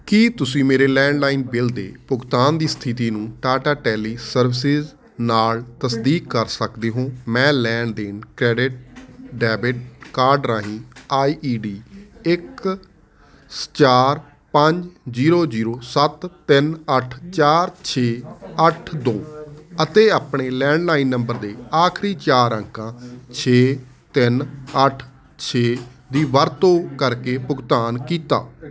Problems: constant background noise